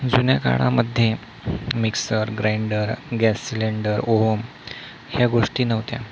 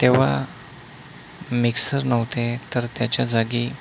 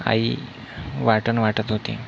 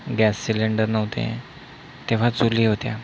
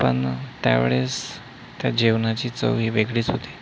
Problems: none marked